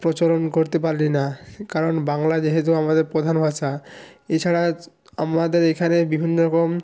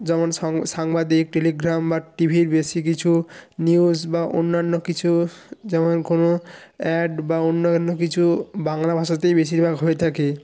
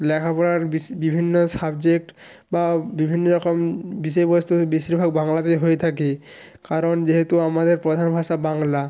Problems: background sounds at intervals